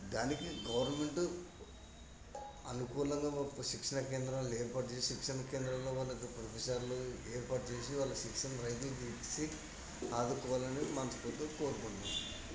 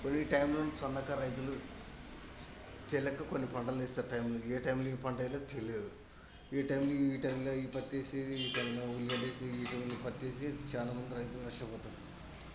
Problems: constant background noise, low volume